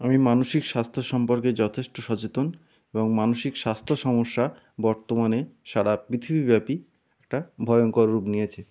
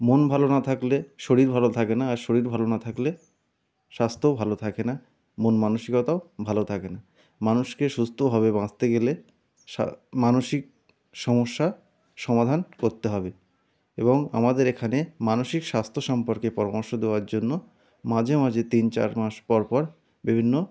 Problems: background sounds at intervals